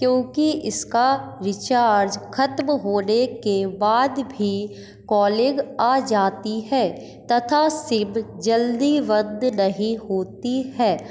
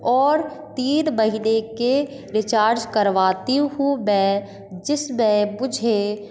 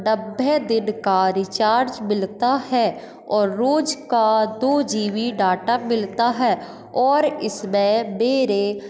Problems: none marked